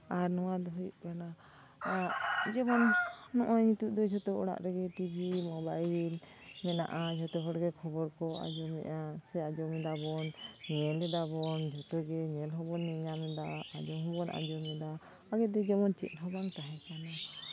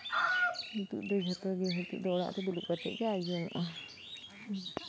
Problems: constant background noise